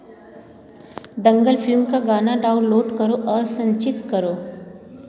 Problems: background sounds at intervals